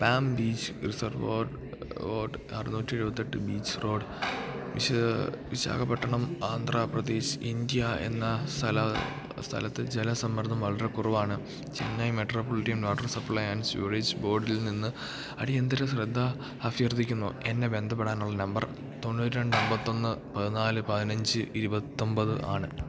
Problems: background sounds at intervals, low volume